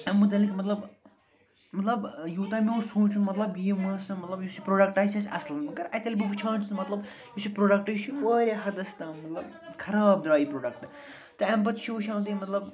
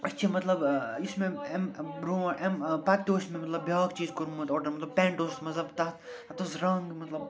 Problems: background sounds at intervals, continuous background conversations